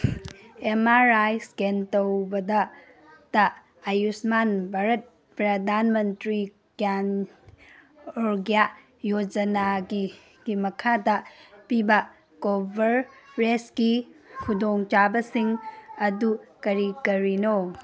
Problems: background sounds at intervals